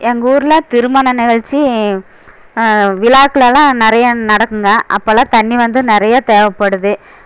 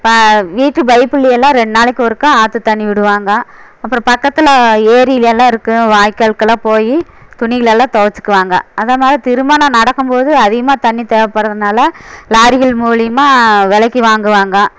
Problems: none marked